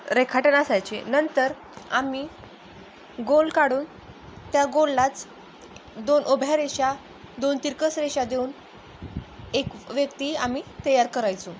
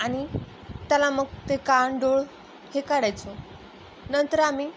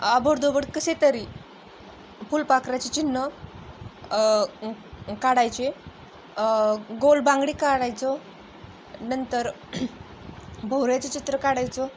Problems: none marked